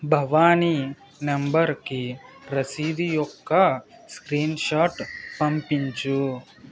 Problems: background sounds at intervals, continuous background conversations